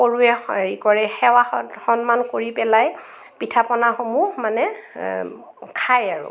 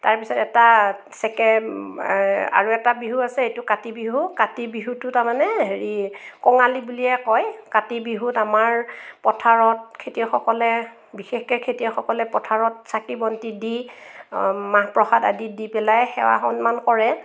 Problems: none marked